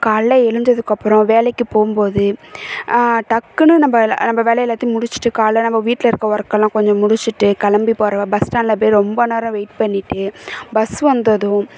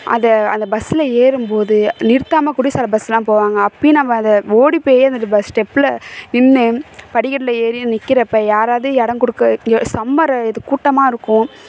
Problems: none marked